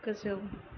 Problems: constant background noise